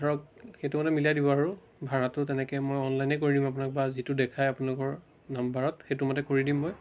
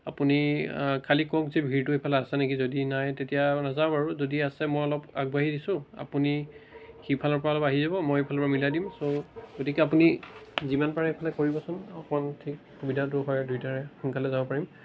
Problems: constant background noise